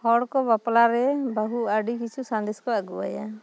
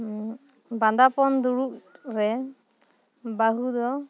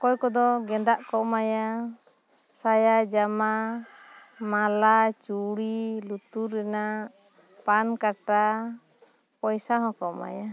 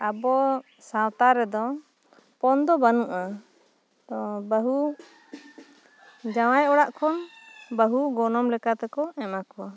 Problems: background sounds at intervals